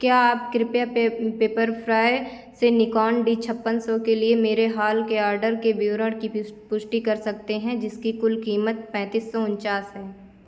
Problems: constant background noise